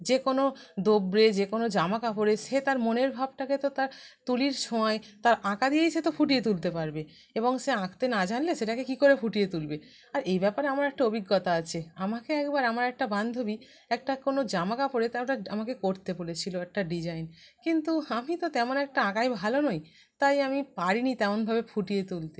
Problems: background sounds at intervals